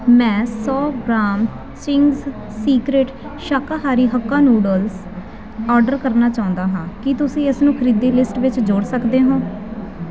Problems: constant background noise